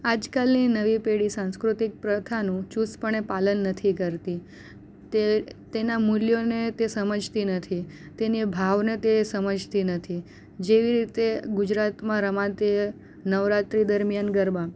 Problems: none marked